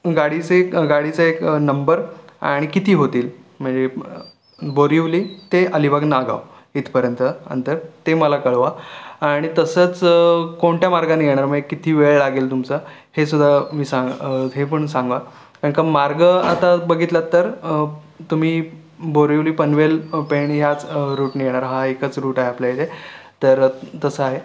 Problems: none marked